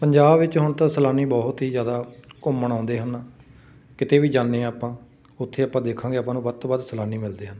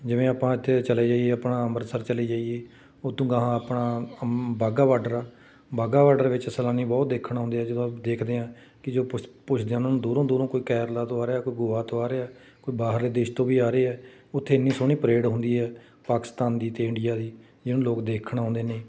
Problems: background sounds at intervals